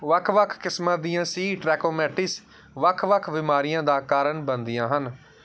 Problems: background sounds at intervals